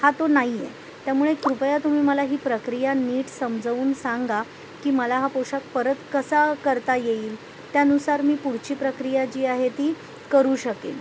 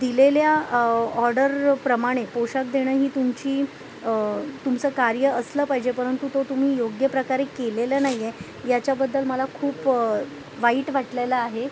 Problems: constant background noise